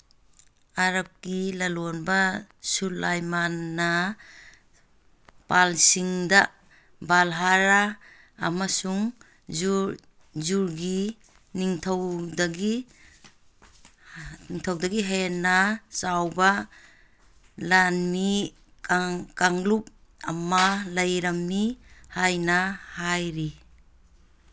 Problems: none marked